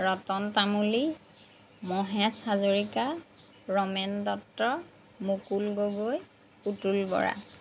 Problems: background sounds at intervals